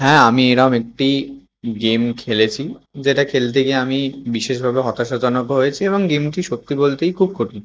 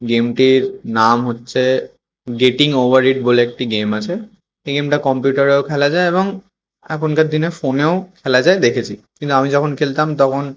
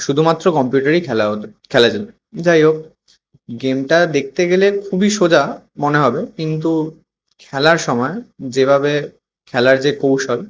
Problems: constant background noise